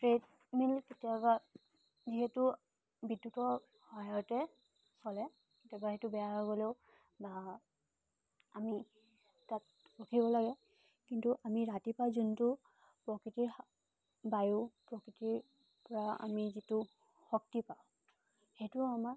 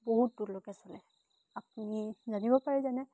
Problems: constant background noise